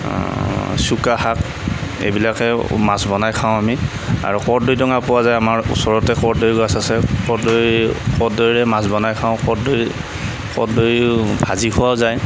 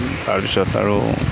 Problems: none marked